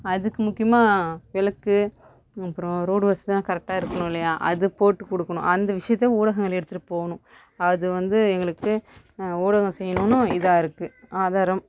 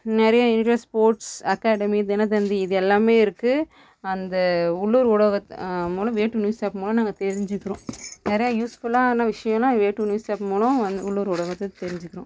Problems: background sounds at intervals, background conversations at intervals